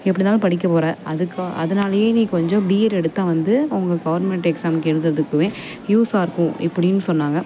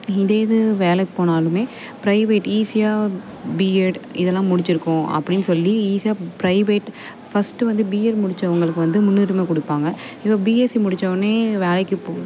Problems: constant background noise